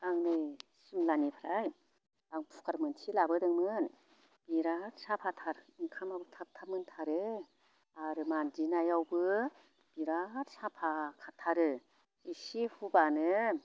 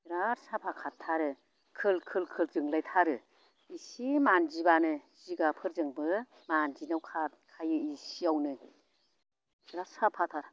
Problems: none marked